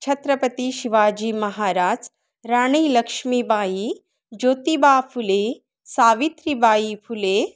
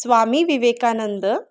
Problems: none marked